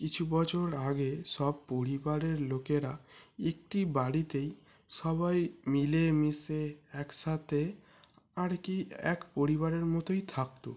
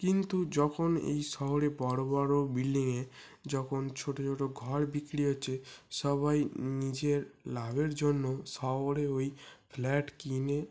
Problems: background sounds at intervals